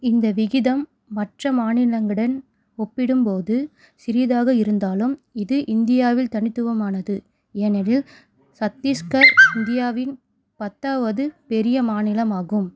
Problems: background sounds at intervals